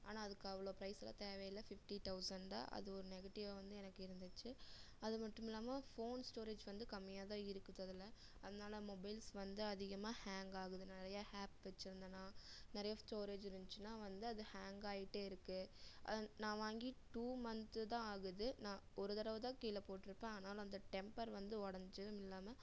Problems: low volume